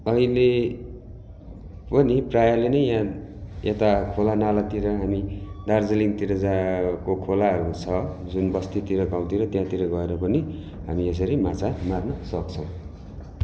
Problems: none marked